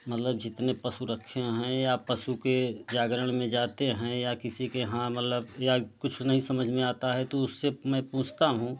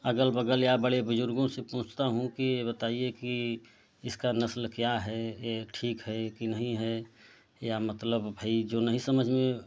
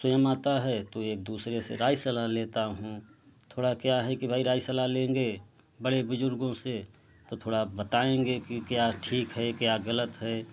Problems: constant background noise, low volume